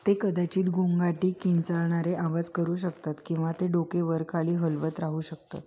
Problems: none marked